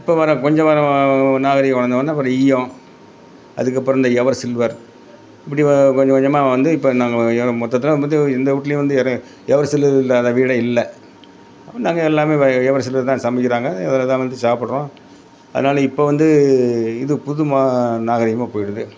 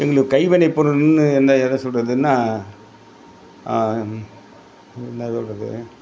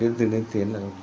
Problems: constant background noise